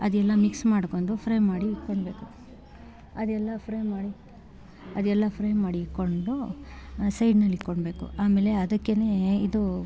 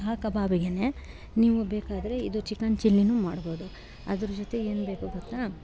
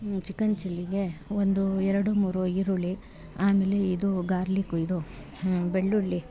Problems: background sounds at intervals